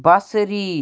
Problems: none marked